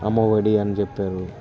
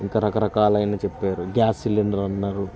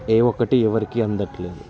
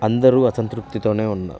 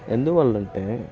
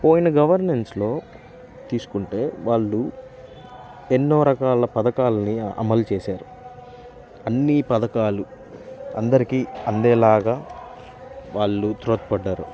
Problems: constant background noise, continuous background conversations